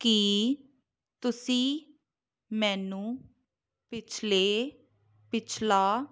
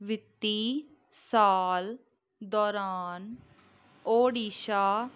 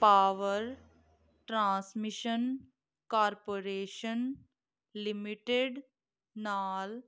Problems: background sounds at intervals